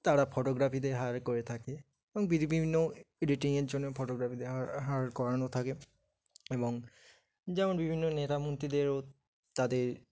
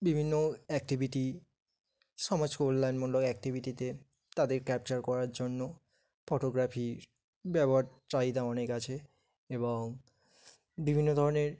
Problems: background sounds at intervals, background conversations at intervals